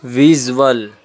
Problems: constant background noise